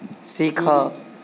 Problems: constant background noise